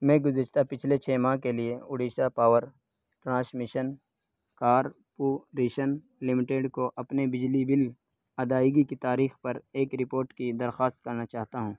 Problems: none marked